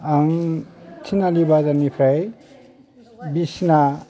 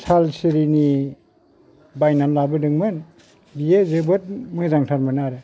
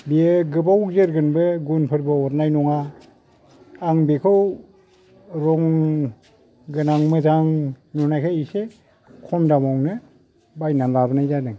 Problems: low volume